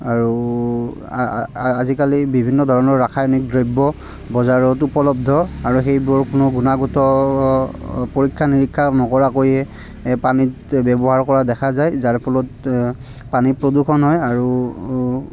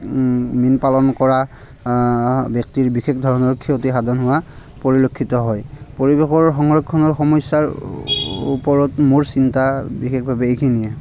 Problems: none marked